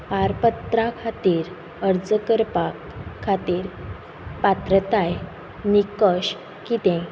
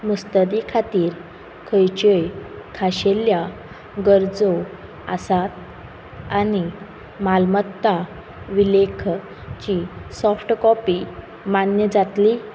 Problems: background sounds at intervals